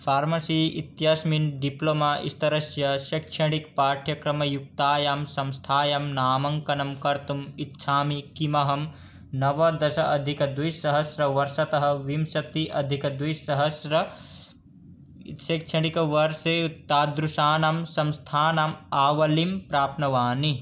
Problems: none marked